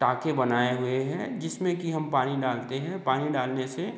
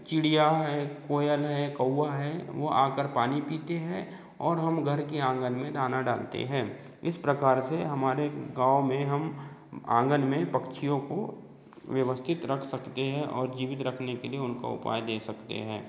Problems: none marked